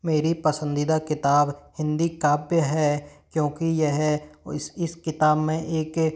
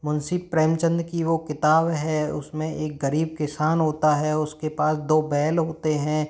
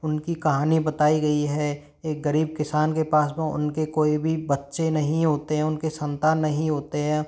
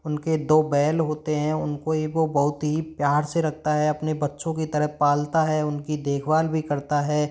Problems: none marked